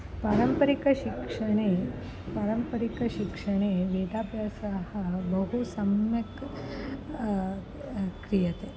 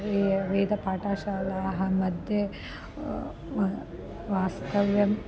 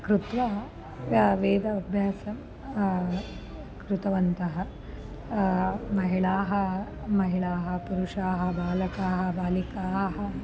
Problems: constant background noise